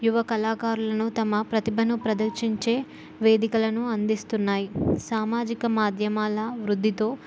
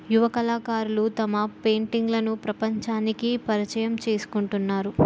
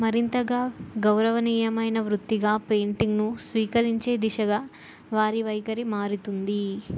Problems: background sounds at intervals